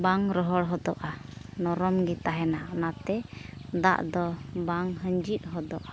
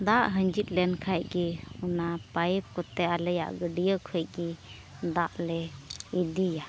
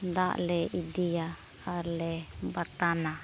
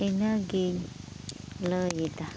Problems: background sounds at intervals